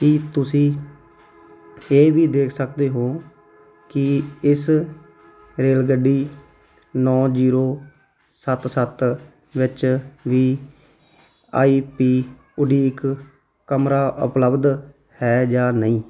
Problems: none marked